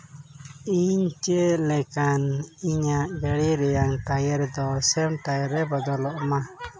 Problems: constant background noise, background conversations at intervals